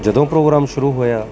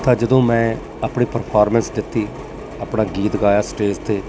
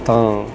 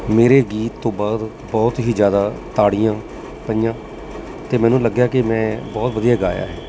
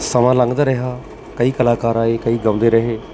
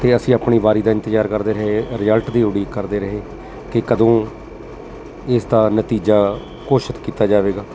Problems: constant background noise